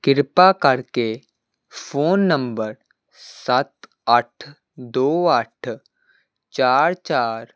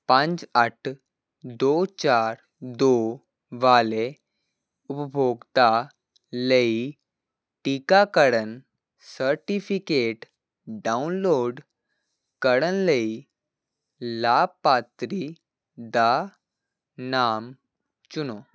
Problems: none marked